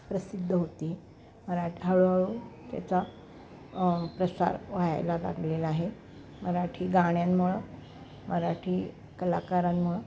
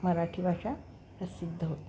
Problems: none marked